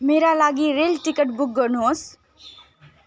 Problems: continuous background conversations